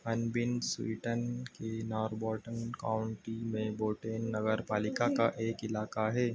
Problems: none marked